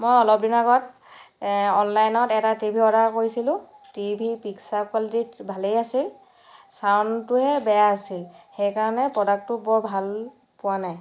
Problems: background sounds at intervals